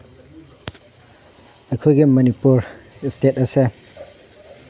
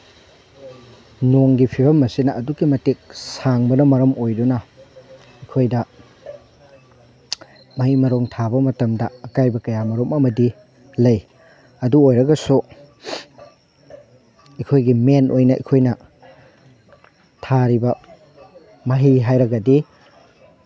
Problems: none marked